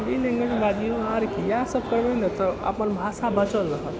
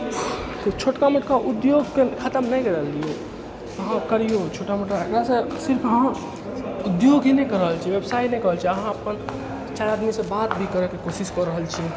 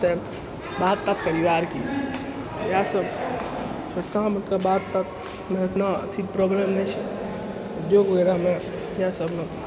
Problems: constant background noise